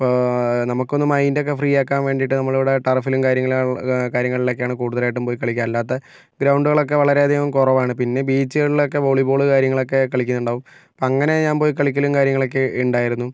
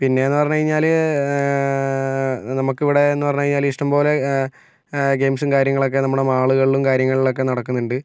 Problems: none marked